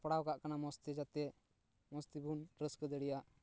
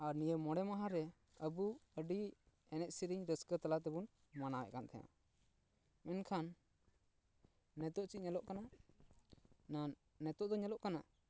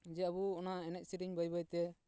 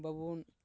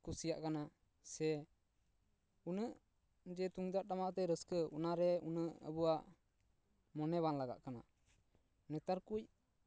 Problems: none marked